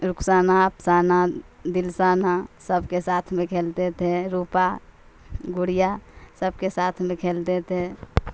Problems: constant background noise